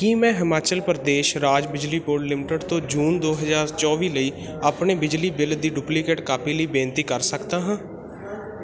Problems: constant background noise